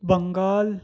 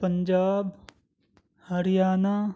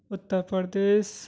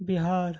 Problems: none marked